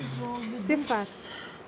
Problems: constant background noise